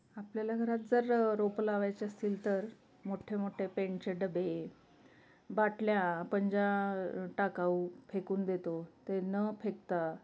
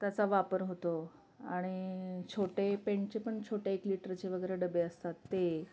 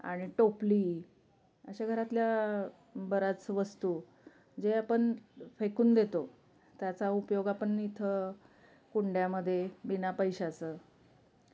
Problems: constant background noise, continuous background conversations